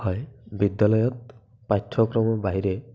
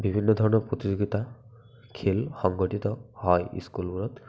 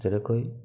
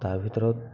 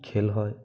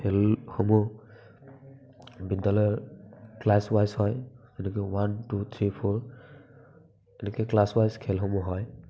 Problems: none marked